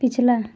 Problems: none marked